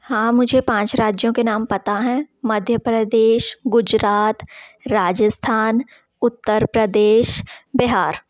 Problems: constant background noise